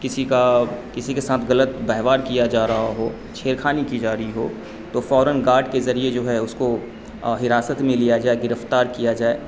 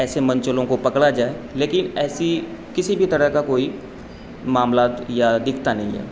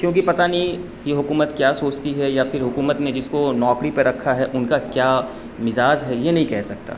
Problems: constant background noise